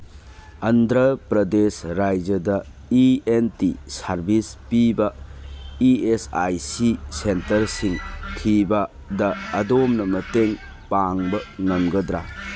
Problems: background sounds at intervals